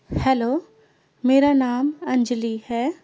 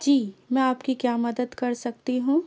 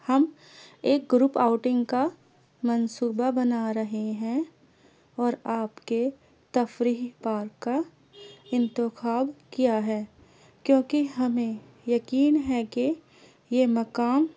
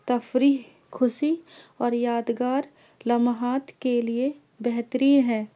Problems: low volume